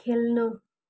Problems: continuous background conversations